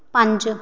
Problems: background sounds at intervals